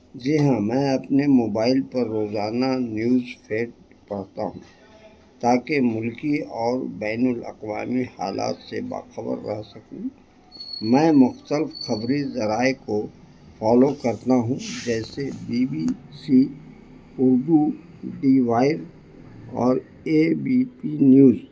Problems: constant background noise, low volume